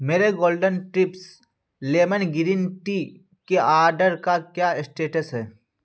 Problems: none marked